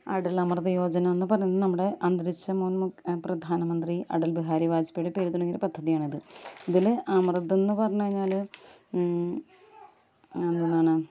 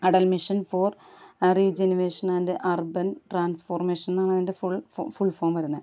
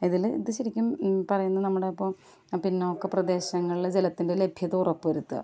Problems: none marked